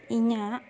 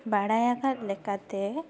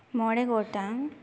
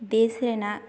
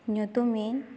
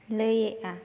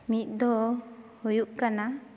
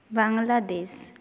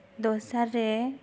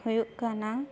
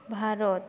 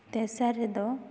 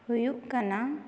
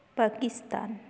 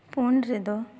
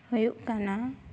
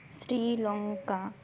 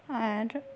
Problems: background sounds at intervals